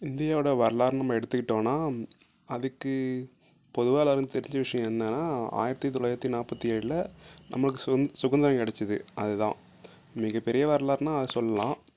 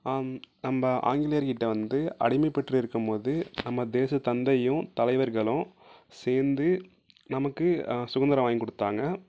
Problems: low volume